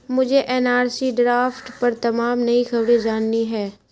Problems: constant background noise